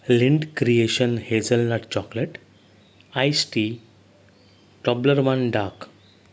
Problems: none marked